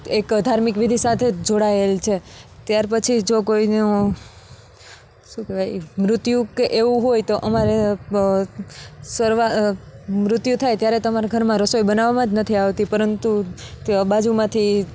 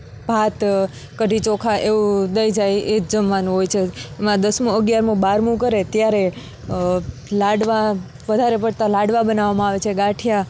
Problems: none marked